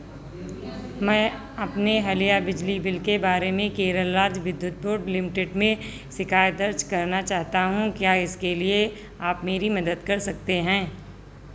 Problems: none marked